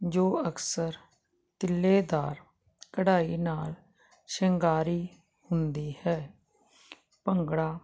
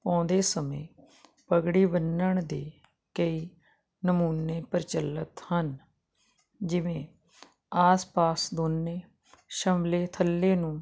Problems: constant background noise